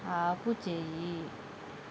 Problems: constant background noise